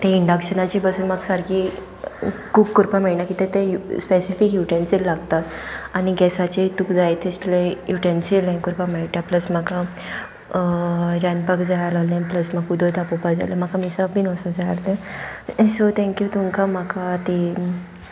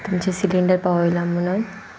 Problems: none marked